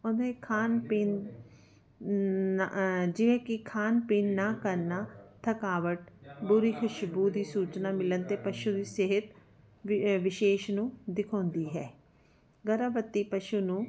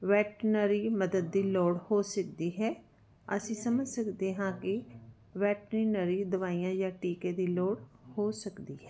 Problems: none marked